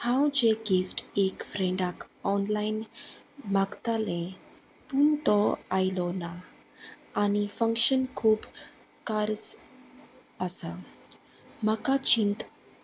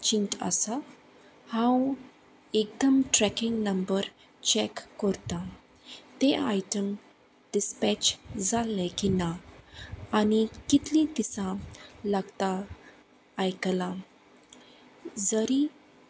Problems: none marked